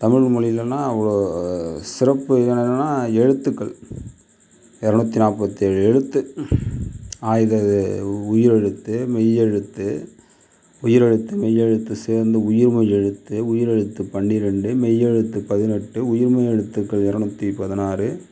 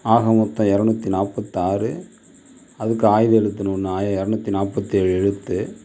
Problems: none marked